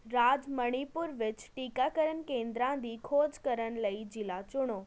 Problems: constant background noise